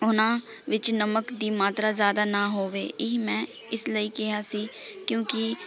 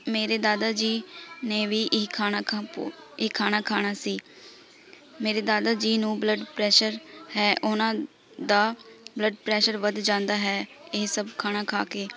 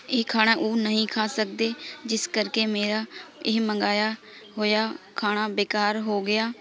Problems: continuous background conversations